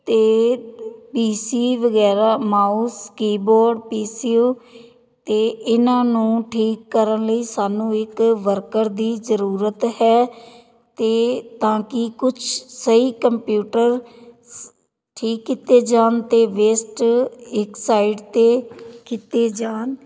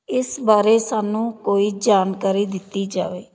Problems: background conversations at intervals